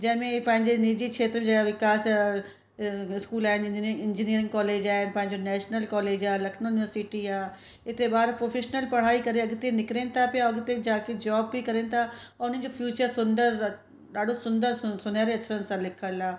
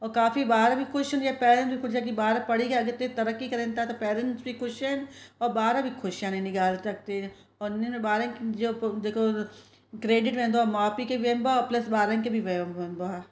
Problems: constant background noise, echo